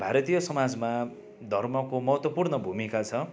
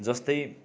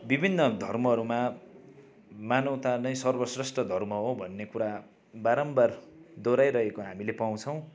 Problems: continuous background conversations